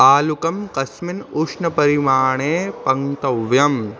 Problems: constant background noise